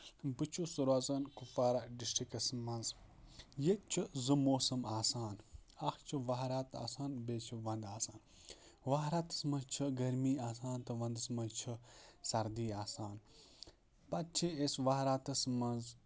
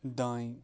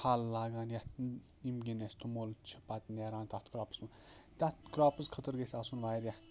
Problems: none marked